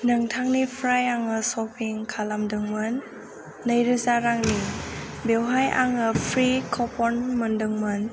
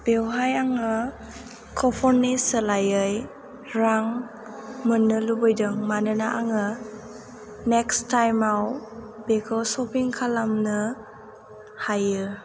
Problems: none marked